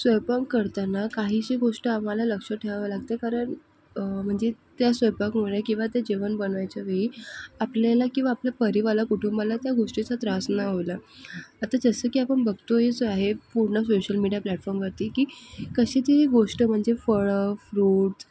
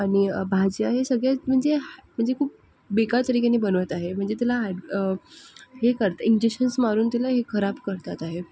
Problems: background sounds at intervals